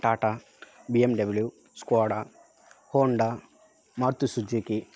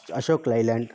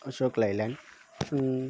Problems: constant background noise